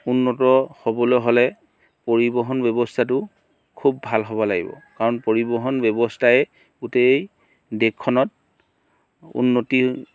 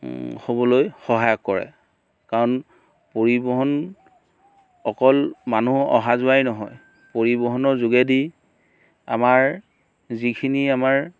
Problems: background sounds at intervals